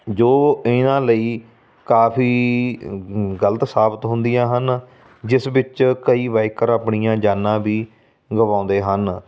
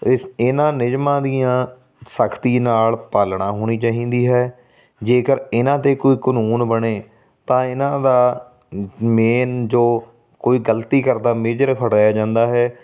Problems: background sounds at intervals